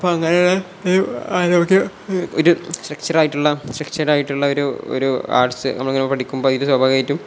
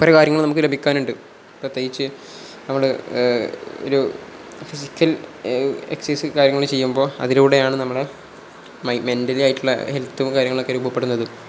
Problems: none marked